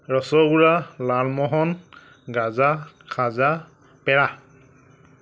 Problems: none marked